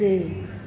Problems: constant background noise, echo